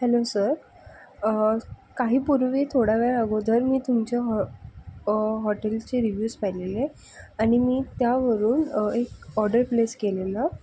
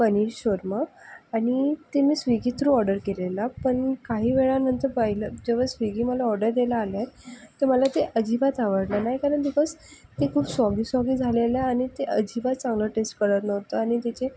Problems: background sounds at intervals, low volume